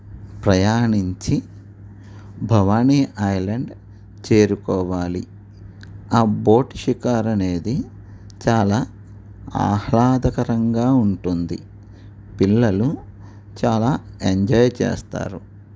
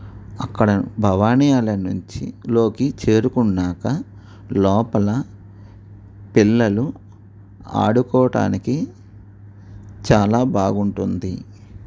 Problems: none marked